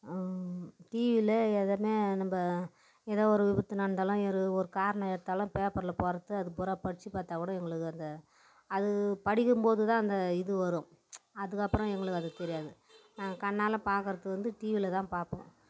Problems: background sounds at intervals